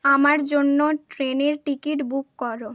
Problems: background sounds at intervals